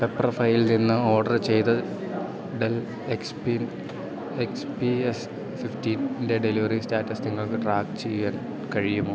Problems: constant background noise